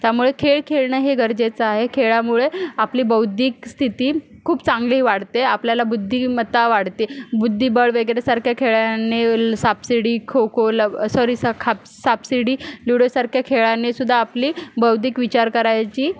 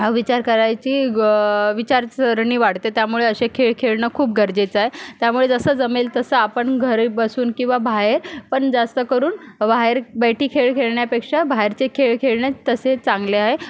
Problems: background sounds at intervals